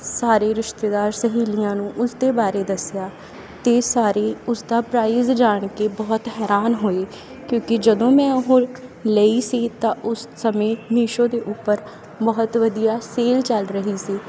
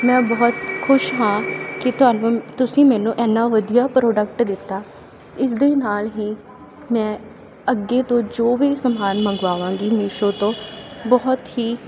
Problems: constant background noise